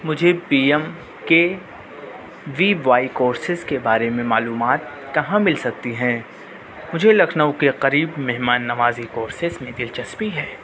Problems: constant background noise, low volume